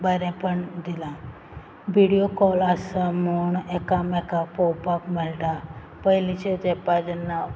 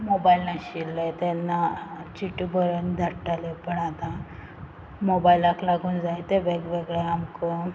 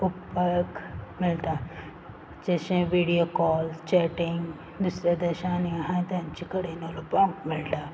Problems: background sounds at intervals